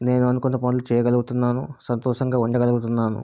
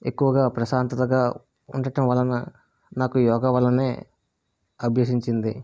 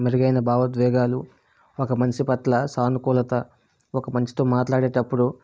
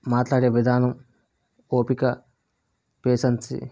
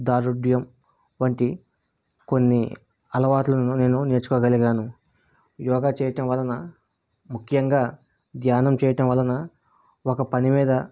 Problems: none marked